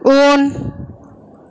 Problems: none marked